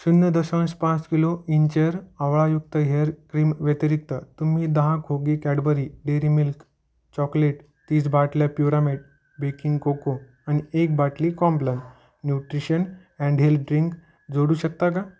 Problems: none marked